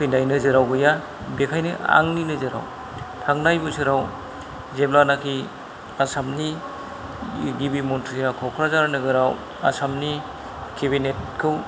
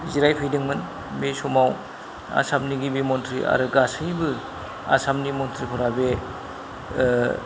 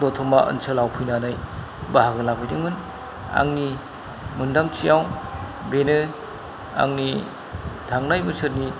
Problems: low volume